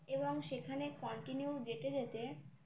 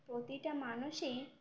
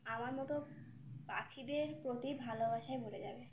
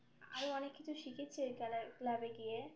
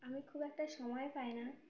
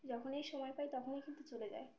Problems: background sounds at intervals